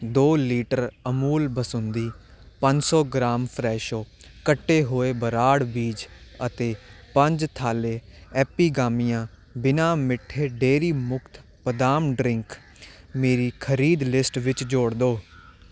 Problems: none marked